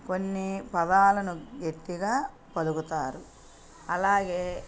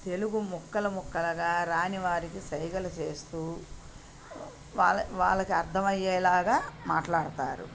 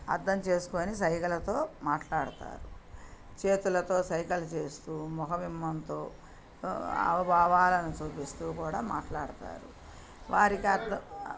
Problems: background sounds at intervals, background conversations at intervals